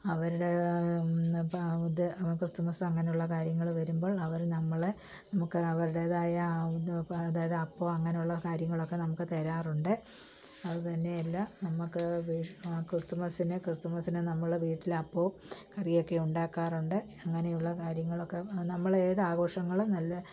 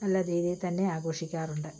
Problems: low volume